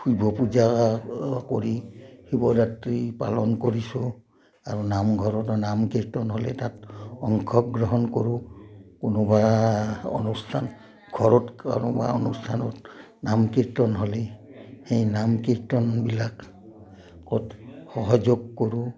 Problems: low volume